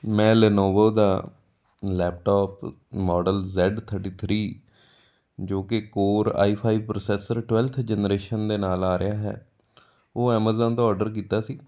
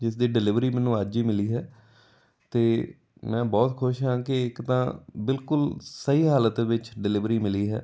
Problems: none marked